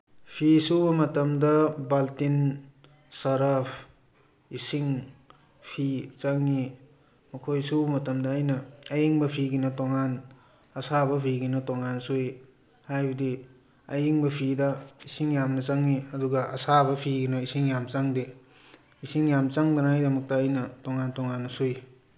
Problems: background conversations at intervals